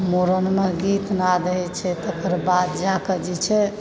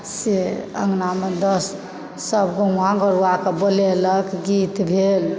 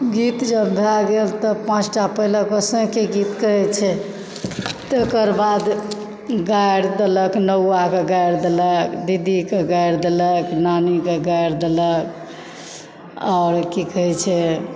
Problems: background sounds at intervals